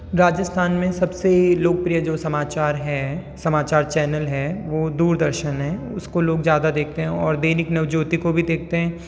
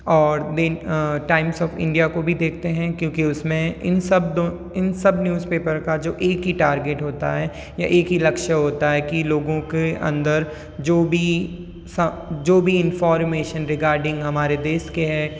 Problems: none marked